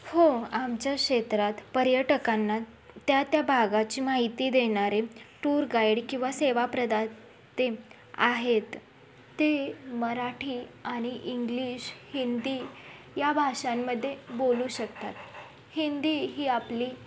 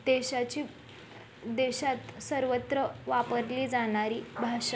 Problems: background sounds at intervals